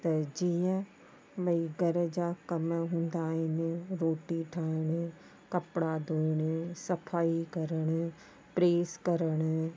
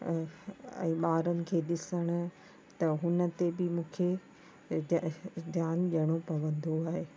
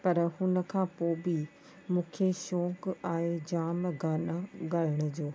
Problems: constant background noise